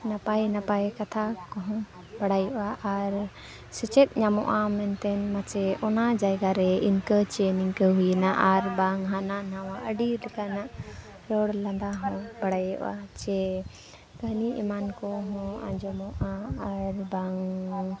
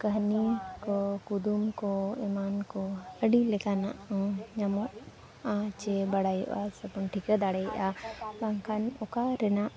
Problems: constant background noise